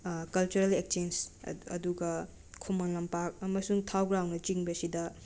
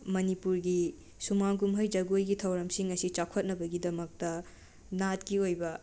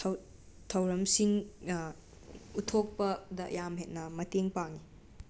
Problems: constant background noise